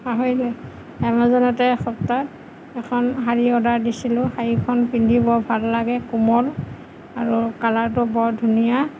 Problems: none marked